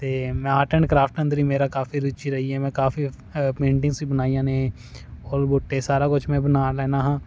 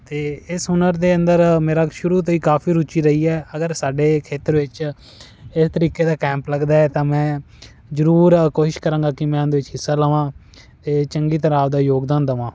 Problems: none marked